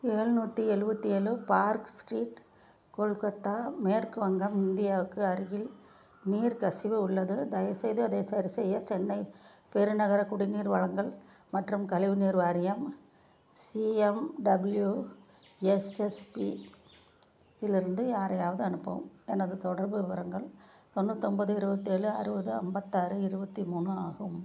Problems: low volume